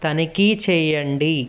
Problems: background sounds at intervals